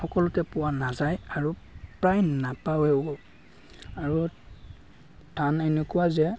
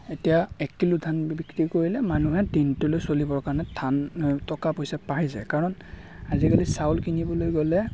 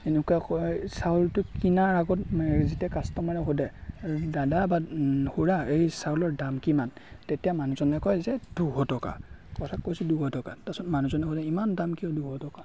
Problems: constant background noise, background conversations at intervals